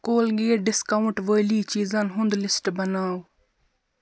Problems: constant background noise